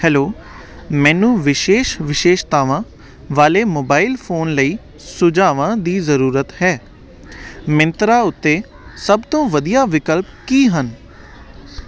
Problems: none marked